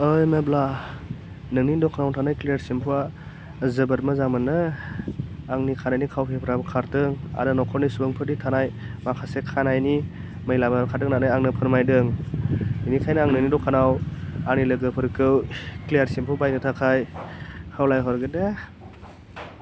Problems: none marked